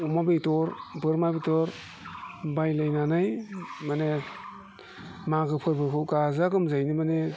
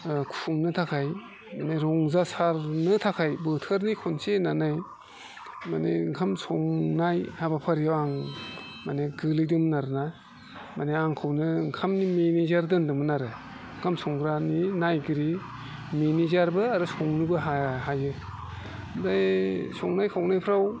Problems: constant background noise